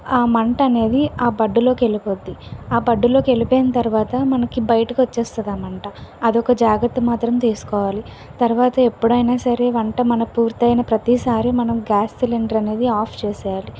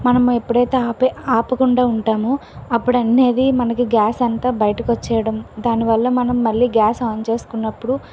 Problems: none marked